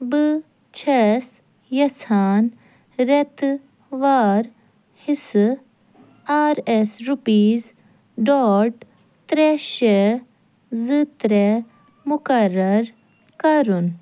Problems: none marked